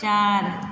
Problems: constant background noise